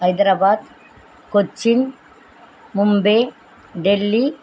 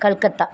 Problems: constant background noise